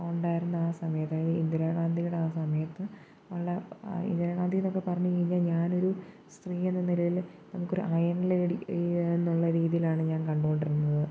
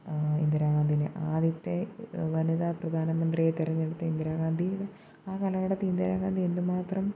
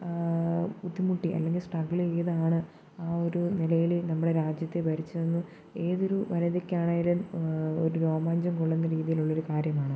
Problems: constant background noise, low volume